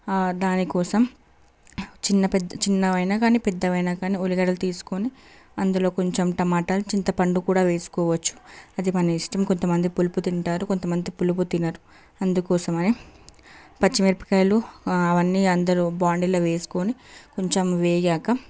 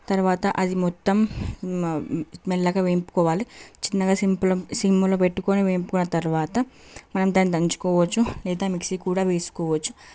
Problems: background sounds at intervals